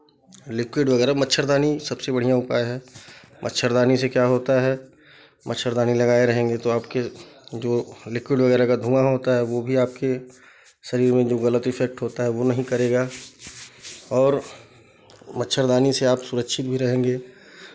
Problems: constant background noise, background conversations at intervals